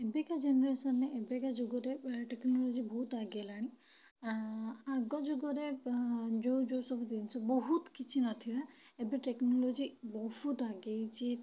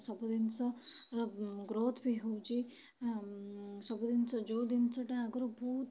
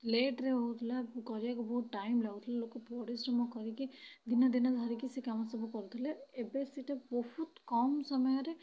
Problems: low volume